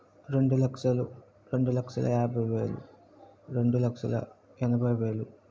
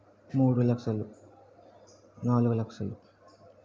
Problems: background sounds at intervals, low volume